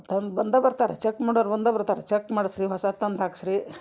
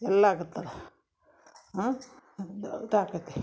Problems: none marked